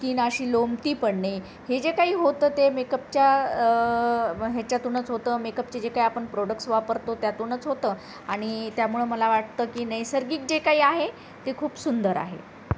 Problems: none marked